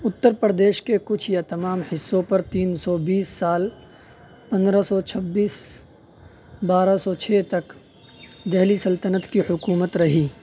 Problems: none marked